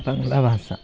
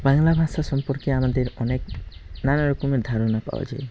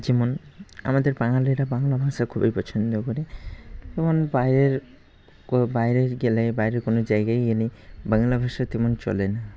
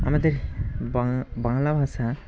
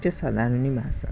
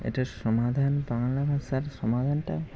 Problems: constant background noise, background conversations at intervals